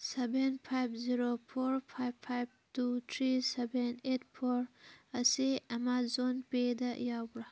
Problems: background sounds at intervals